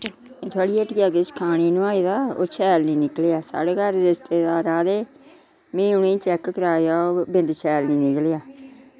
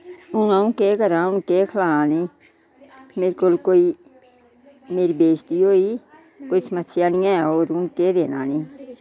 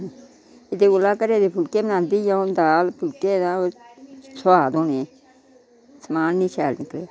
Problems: constant background noise